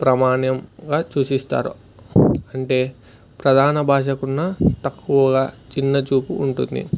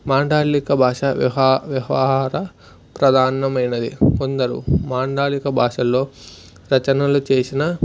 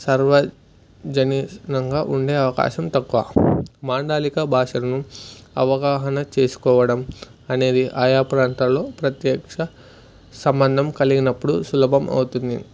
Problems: background sounds at intervals